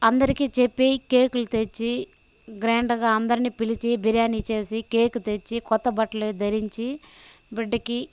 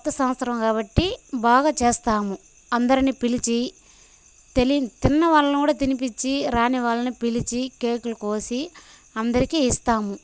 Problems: none marked